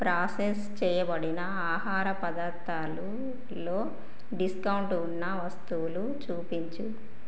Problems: none marked